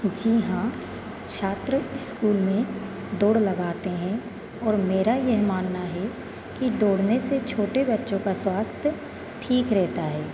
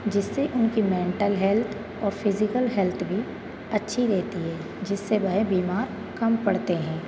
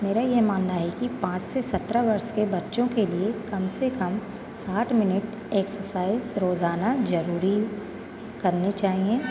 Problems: constant background noise